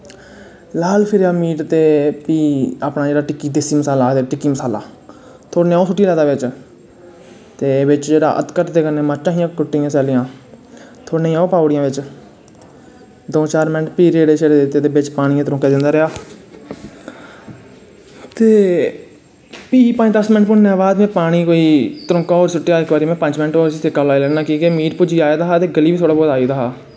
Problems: none marked